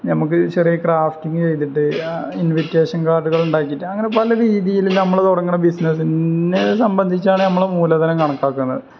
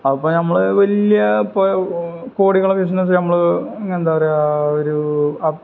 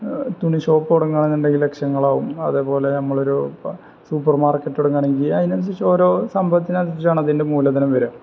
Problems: background sounds at intervals